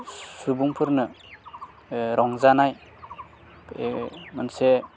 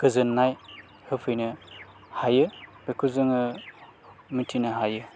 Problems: constant background noise